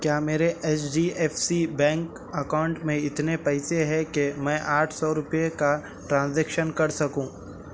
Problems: none marked